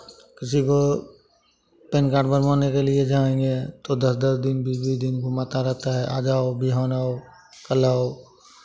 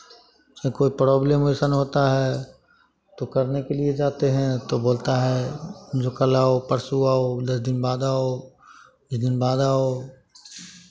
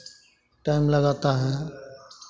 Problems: constant background noise, continuous background conversations